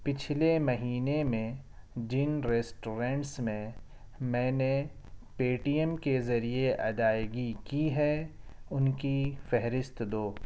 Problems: none marked